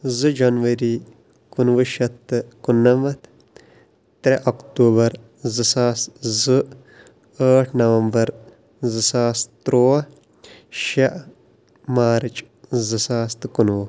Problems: background sounds at intervals